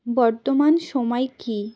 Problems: background sounds at intervals